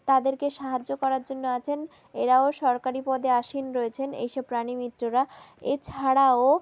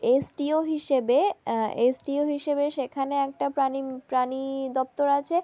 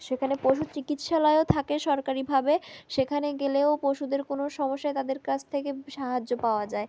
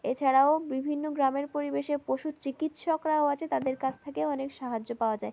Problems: background sounds at intervals